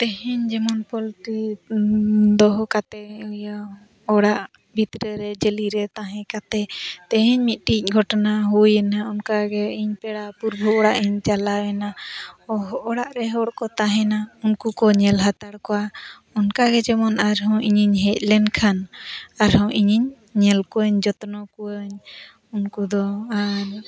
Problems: background sounds at intervals, continuous background conversations